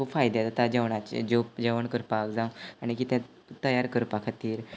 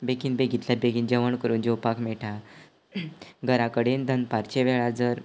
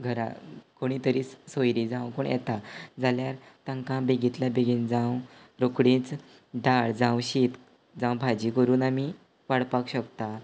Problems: background sounds at intervals